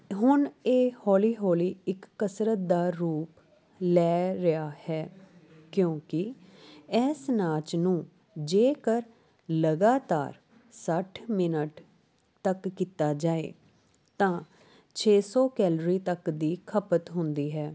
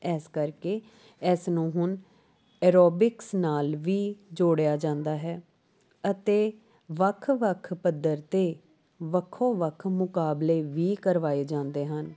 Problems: background sounds at intervals